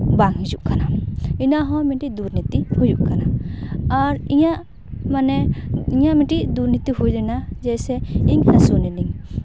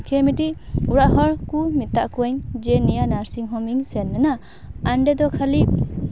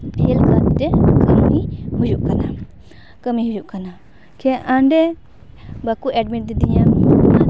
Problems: background sounds at intervals